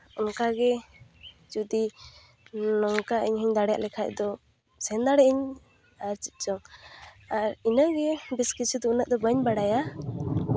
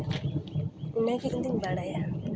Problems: none marked